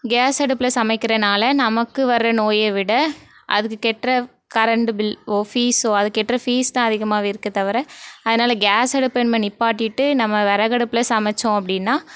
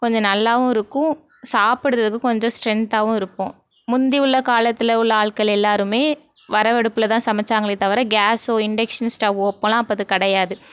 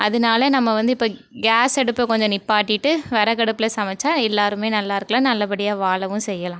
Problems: none marked